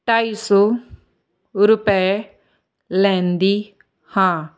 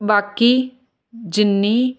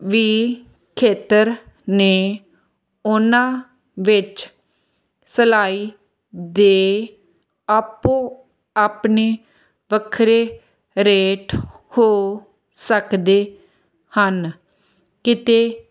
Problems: none marked